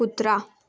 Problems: background sounds at intervals